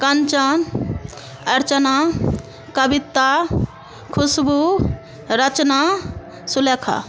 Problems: constant background noise